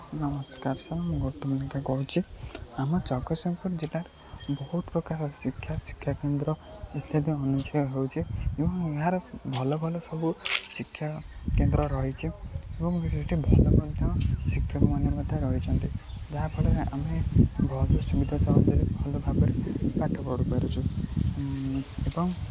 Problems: constant background noise, low volume